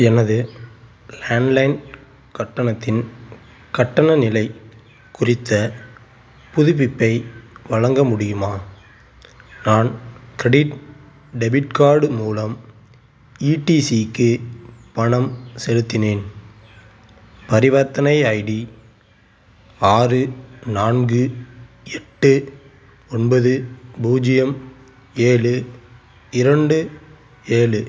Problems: background sounds at intervals